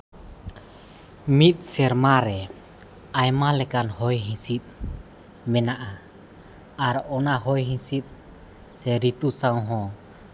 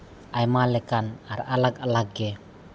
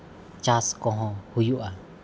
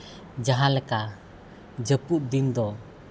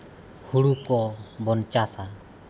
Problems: constant background noise, background conversations at intervals